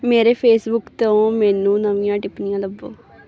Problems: none marked